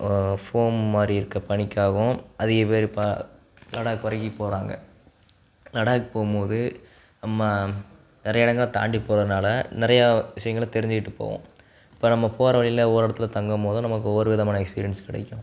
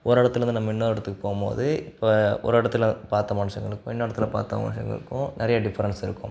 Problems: background sounds at intervals